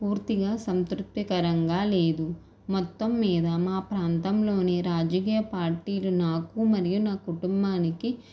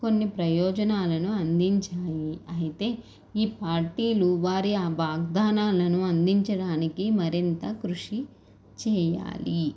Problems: none marked